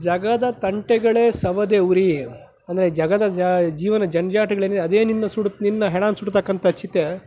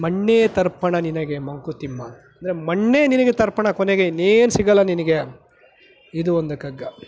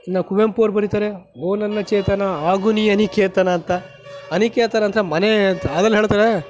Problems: none marked